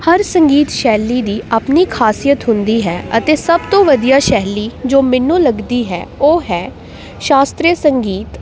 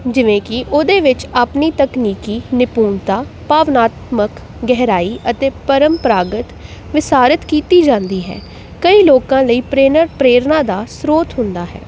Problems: background sounds at intervals